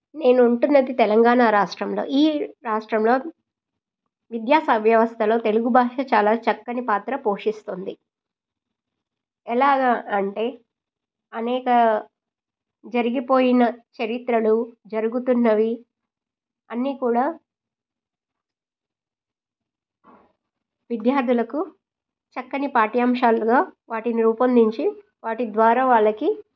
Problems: none marked